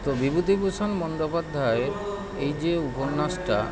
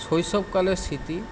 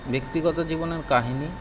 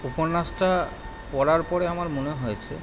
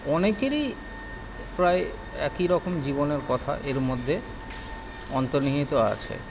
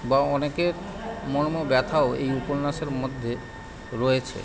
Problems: none marked